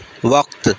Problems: constant background noise